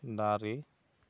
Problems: none marked